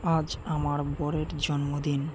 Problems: constant background noise